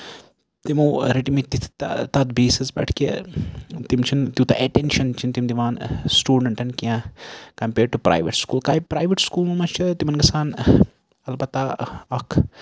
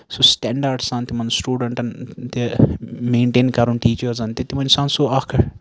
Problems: background sounds at intervals